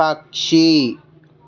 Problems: constant background noise, background conversations at intervals